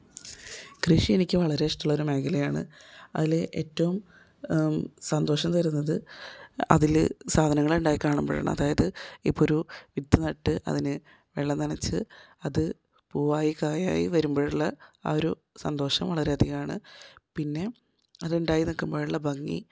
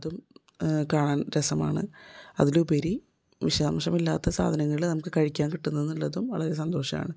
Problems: none marked